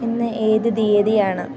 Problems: none marked